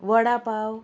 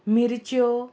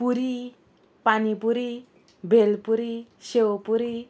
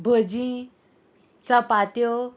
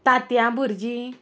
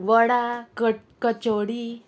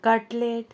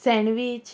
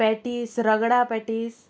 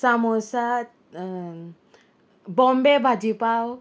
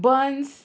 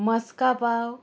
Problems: constant background noise, continuous background conversations